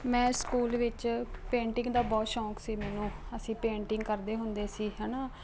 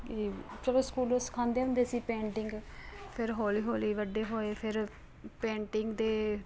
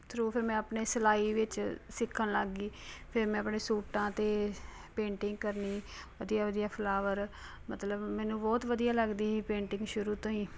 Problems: none marked